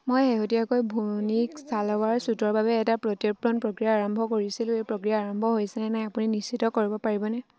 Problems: none marked